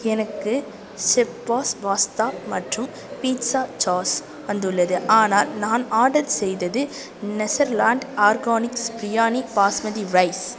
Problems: background conversations at intervals